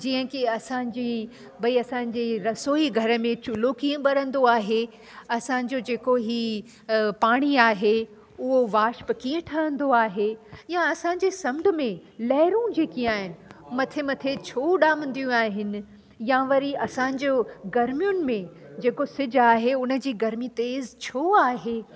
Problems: constant background noise